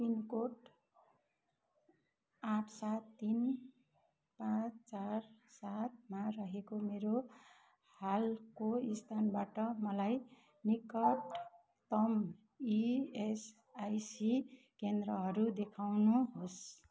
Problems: constant background noise